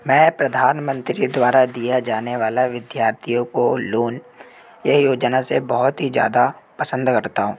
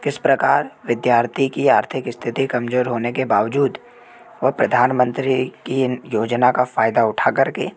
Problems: constant background noise